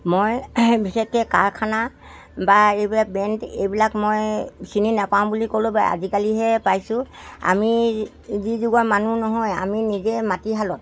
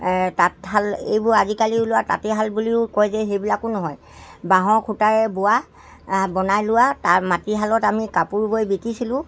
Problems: constant background noise